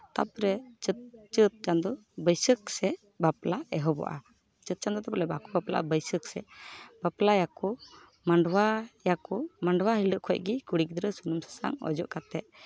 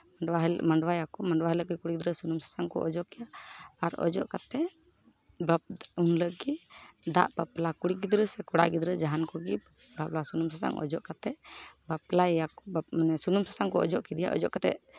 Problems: background sounds at intervals, background conversations at intervals